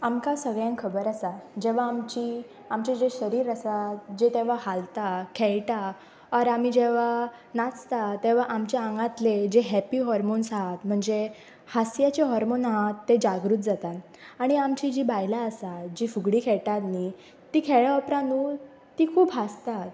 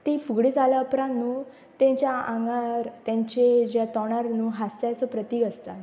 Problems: constant background noise